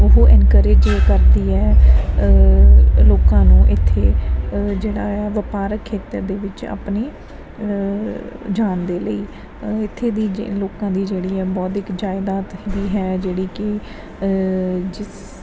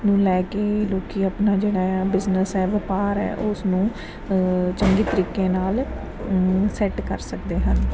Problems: constant background noise